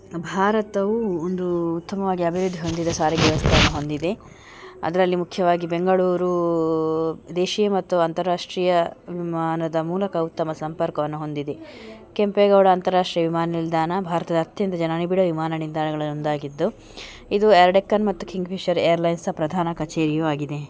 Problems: background sounds at intervals